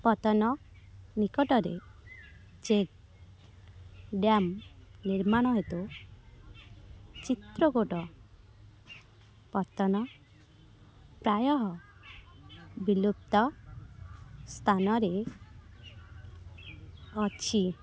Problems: none marked